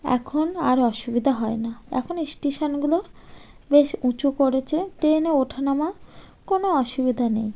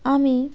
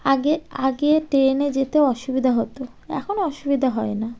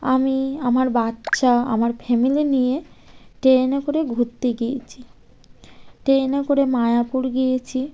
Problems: constant background noise